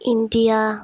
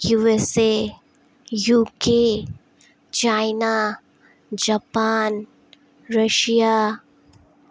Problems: none marked